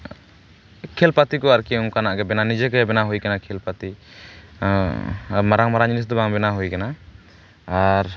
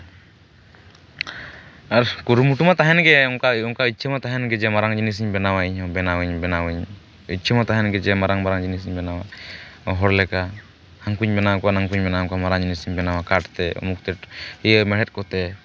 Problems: none marked